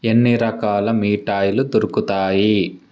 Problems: none marked